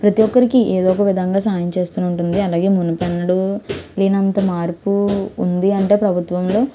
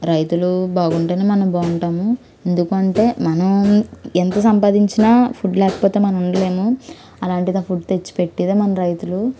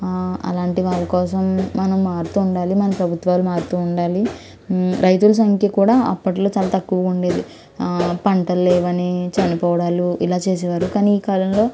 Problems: constant background noise